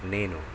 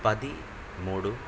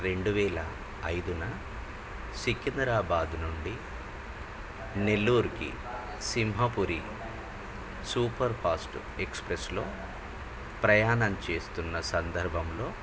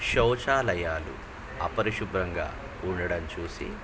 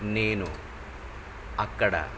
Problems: constant background noise